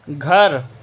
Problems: constant background noise